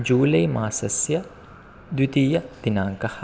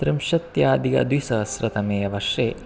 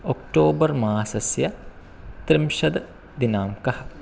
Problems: constant background noise